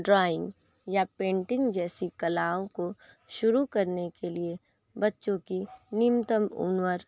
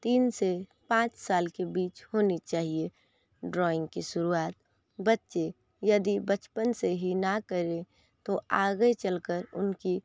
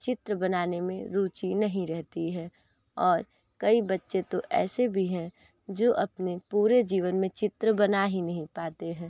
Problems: constant background noise